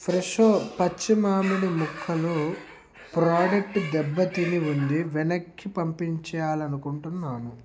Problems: constant background noise